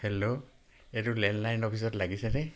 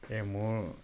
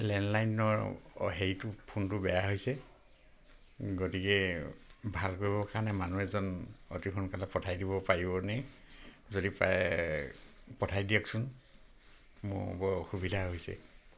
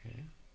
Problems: none marked